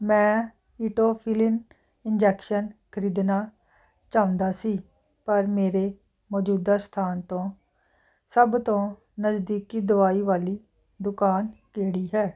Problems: none marked